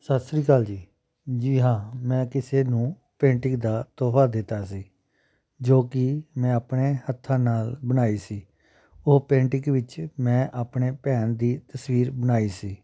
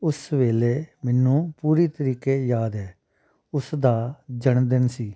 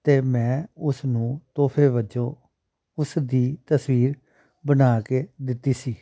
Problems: none marked